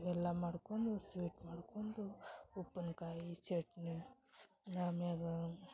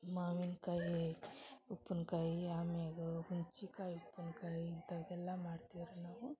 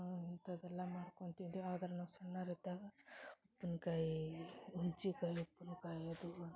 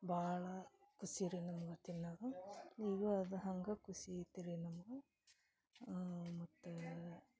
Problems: background conversations at intervals, low volume